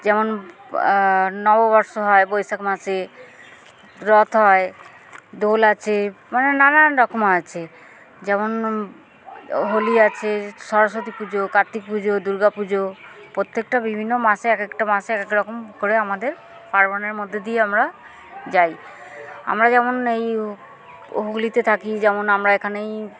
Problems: none marked